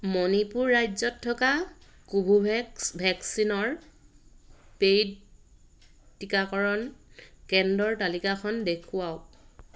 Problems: none marked